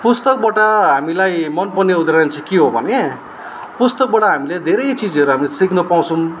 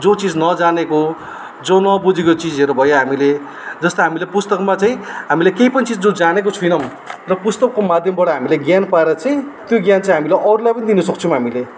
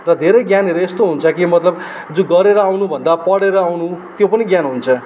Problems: constant background noise